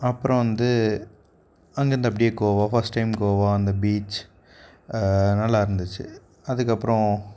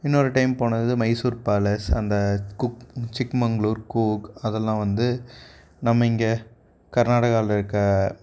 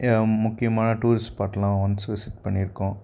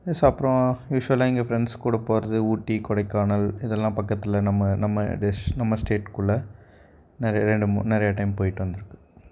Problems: none marked